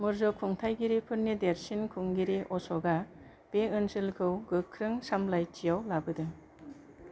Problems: low volume